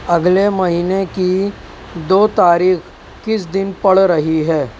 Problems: none marked